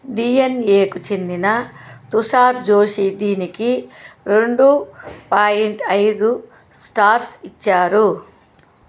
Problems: constant background noise